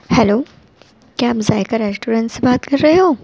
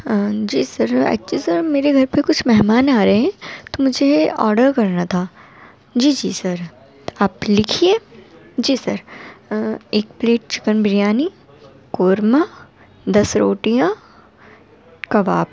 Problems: constant background noise